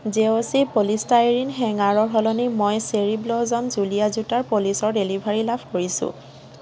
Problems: constant background noise